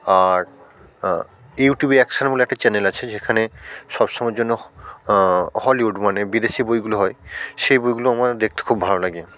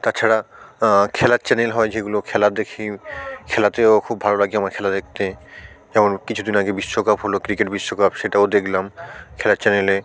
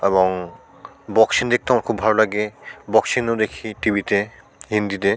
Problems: none marked